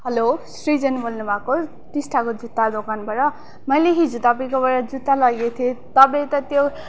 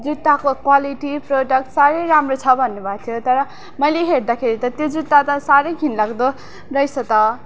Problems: none marked